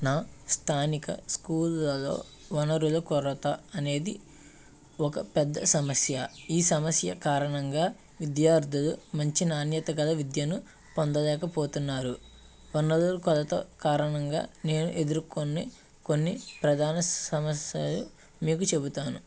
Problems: background sounds at intervals, background conversations at intervals